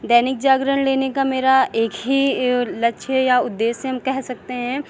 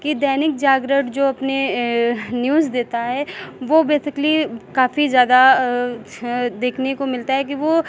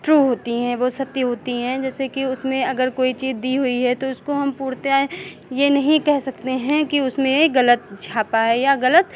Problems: none marked